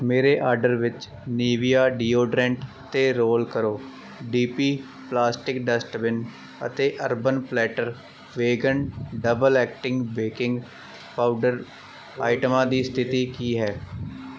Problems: background sounds at intervals